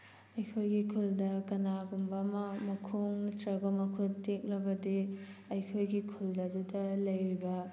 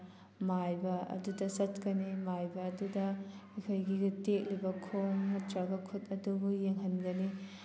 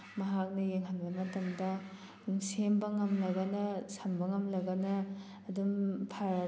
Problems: constant background noise